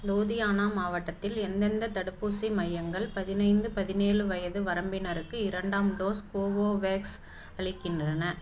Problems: none marked